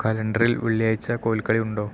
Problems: none marked